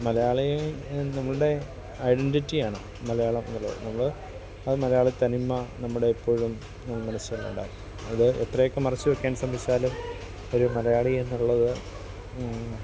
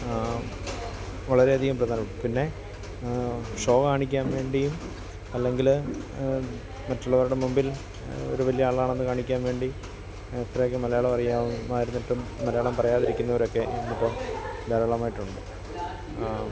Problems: constant background noise, continuous background conversations